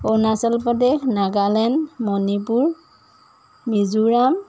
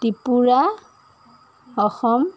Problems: background sounds at intervals